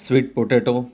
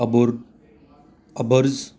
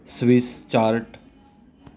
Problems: none marked